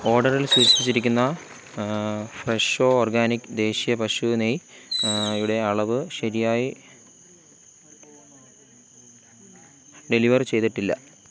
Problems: constant background noise